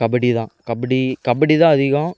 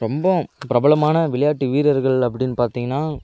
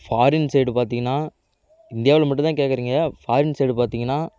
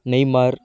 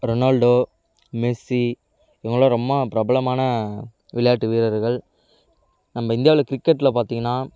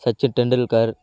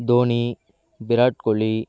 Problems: none marked